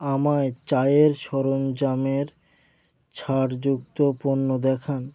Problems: none marked